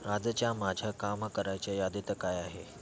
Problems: none marked